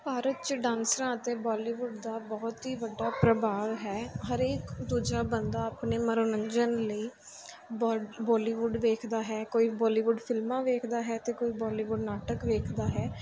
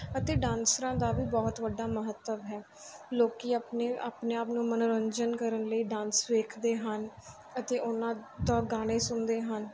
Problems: none marked